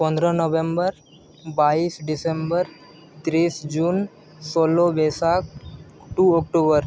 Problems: constant background noise